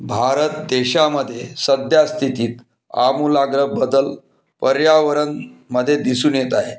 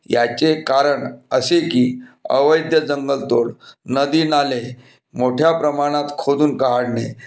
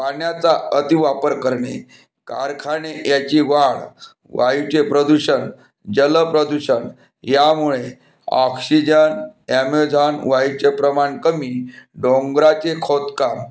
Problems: constant background noise